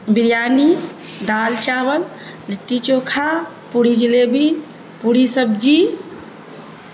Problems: constant background noise, low volume